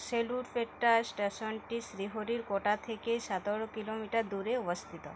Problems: none marked